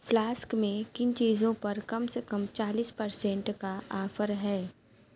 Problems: none marked